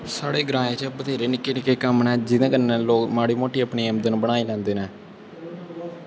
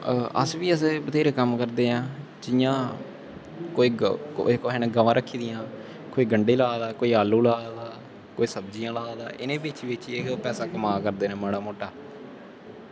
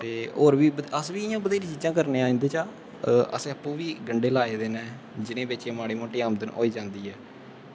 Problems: constant background noise